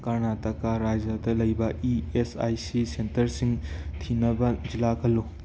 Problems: none marked